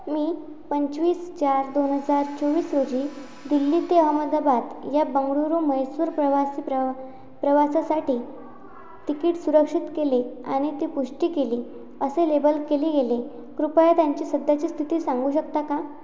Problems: constant background noise, background conversations at intervals